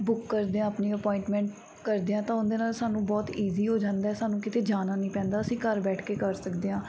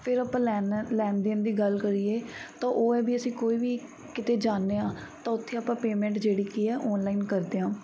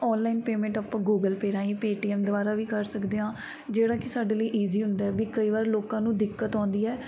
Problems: background sounds at intervals